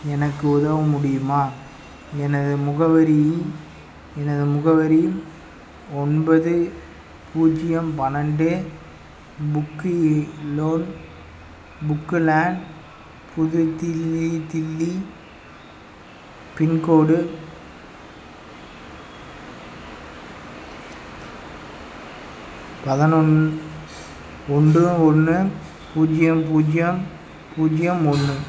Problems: background sounds at intervals